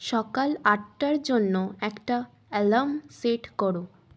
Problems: constant background noise